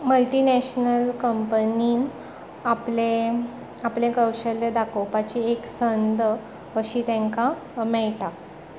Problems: constant background noise